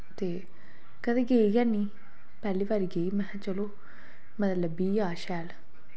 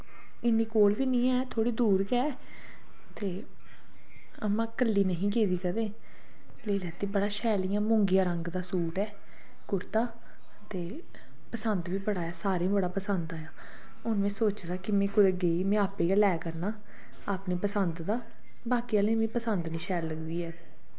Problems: low volume